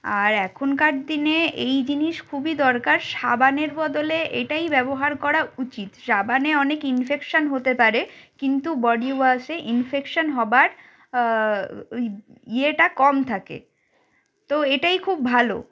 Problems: background sounds at intervals